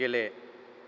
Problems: none marked